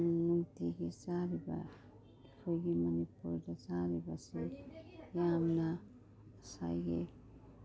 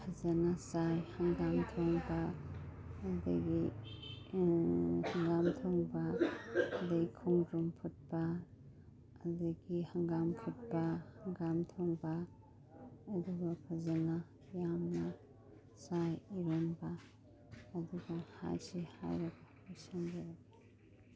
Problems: background sounds at intervals